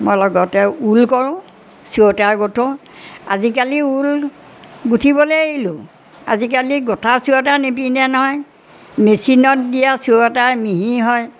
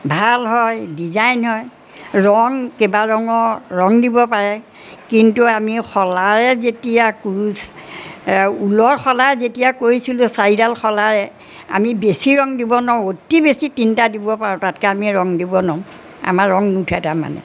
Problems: background sounds at intervals